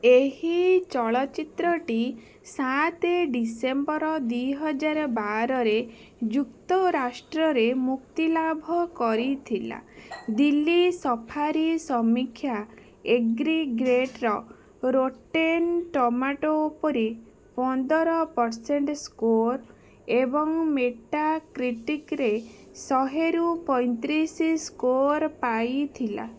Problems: background sounds at intervals